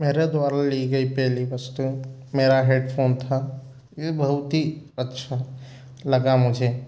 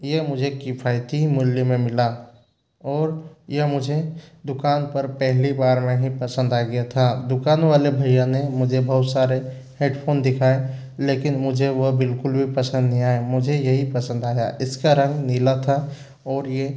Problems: background sounds at intervals